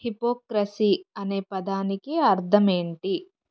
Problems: none marked